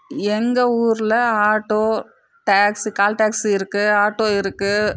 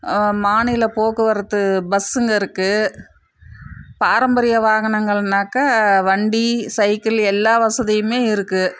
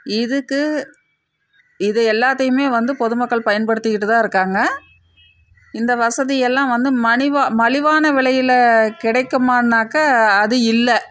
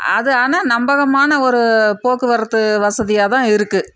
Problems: none marked